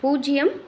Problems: background sounds at intervals, background conversations at intervals